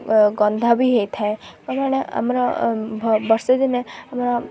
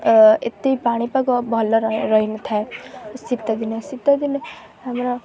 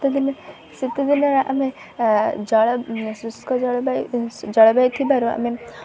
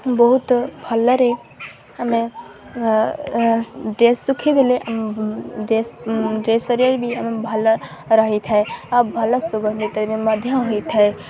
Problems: none marked